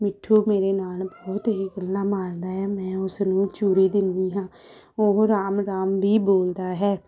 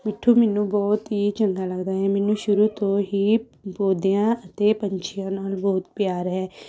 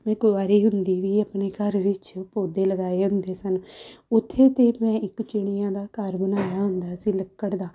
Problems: background sounds at intervals